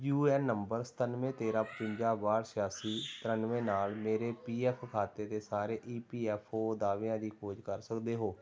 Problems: background sounds at intervals